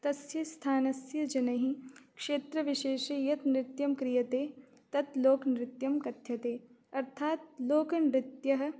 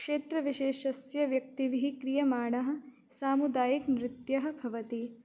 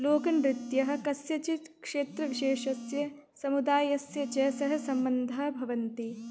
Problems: constant background noise